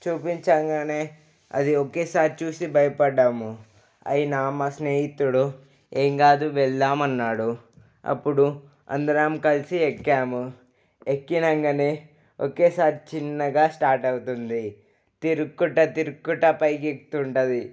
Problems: none marked